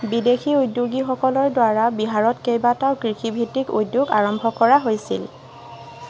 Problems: constant background noise